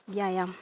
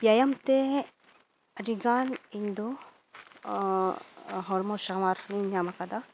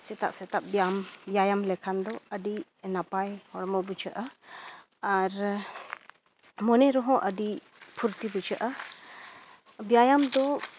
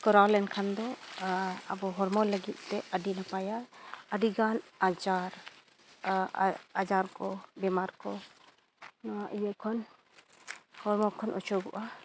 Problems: background sounds at intervals